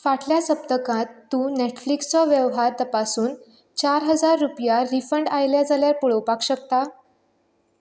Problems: none marked